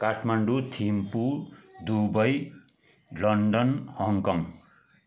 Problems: constant background noise